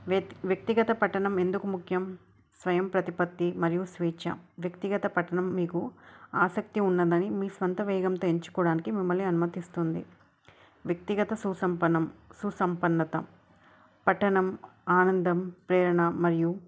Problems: none marked